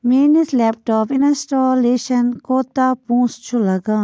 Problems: constant background noise